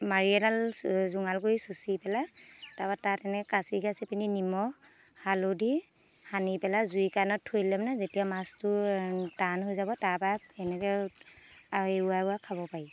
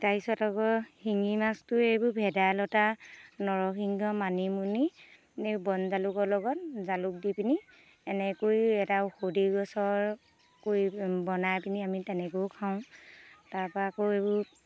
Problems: constant background noise